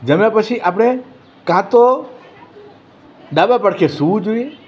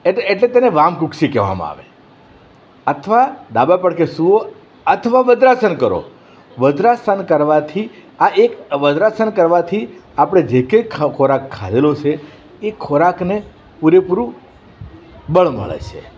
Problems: none marked